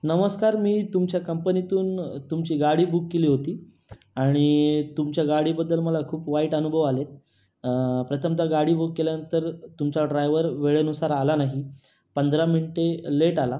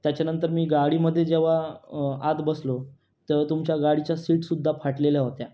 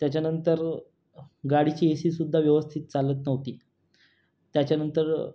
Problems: none marked